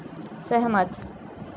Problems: constant background noise